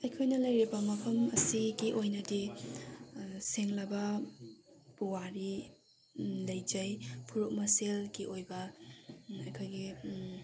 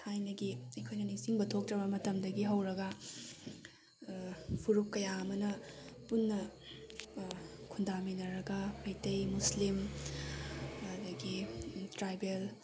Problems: background sounds at intervals